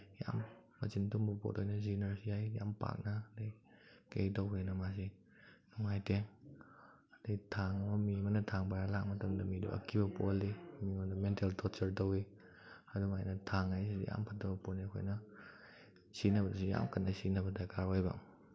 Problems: background sounds at intervals